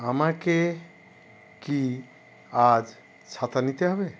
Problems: none marked